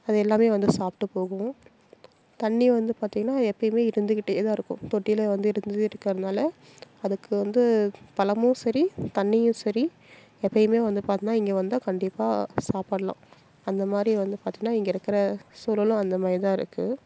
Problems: none marked